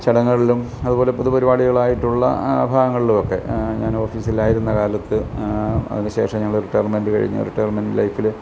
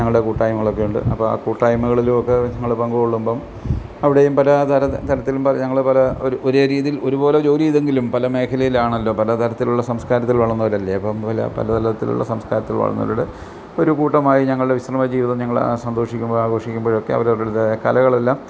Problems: none marked